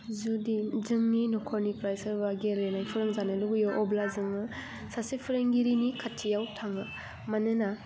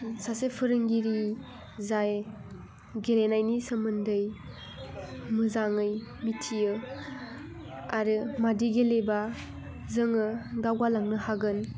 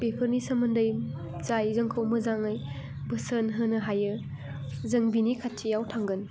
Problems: none marked